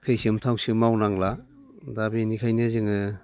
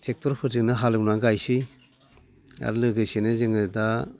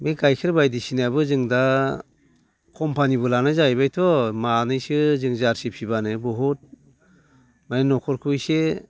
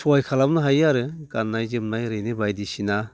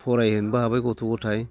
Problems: constant background noise